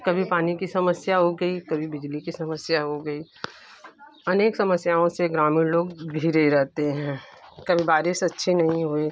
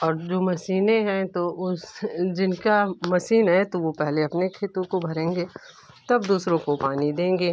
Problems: none marked